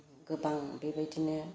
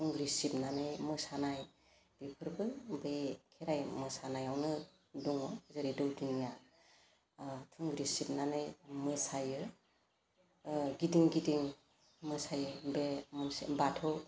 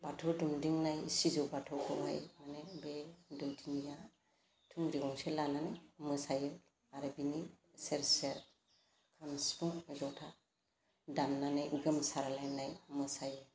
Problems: constant background noise